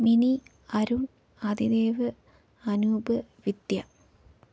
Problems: low volume